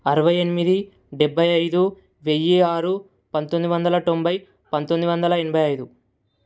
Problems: none marked